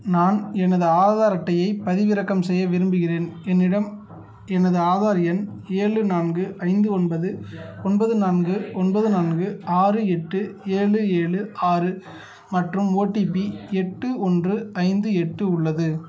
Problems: background sounds at intervals